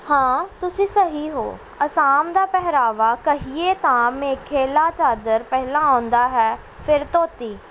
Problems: none marked